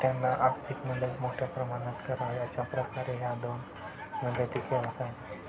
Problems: constant background noise, continuous background conversations